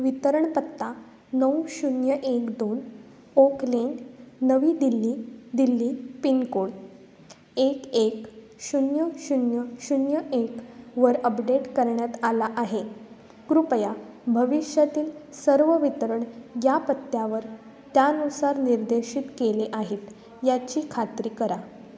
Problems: constant background noise